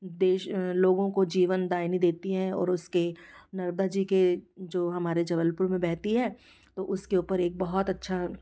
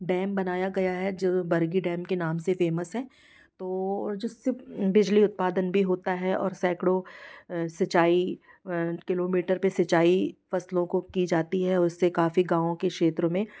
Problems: background sounds at intervals